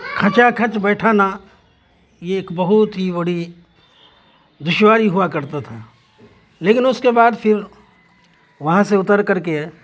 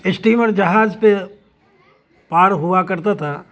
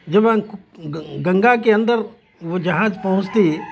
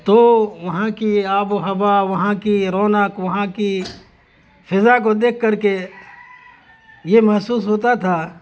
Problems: constant background noise, background conversations at intervals